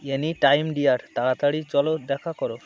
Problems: constant background noise